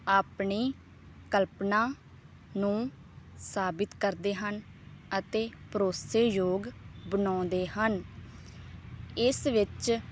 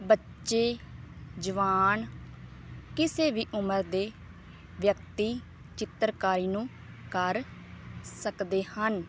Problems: none marked